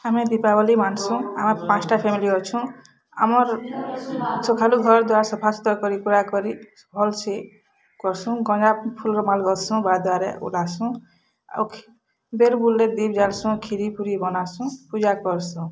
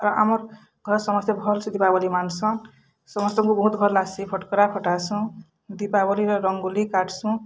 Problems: background conversations at intervals